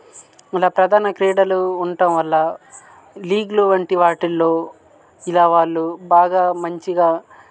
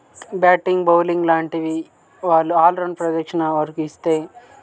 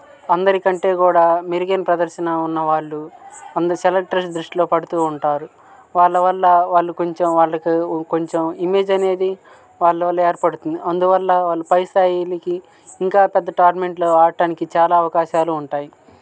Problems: background sounds at intervals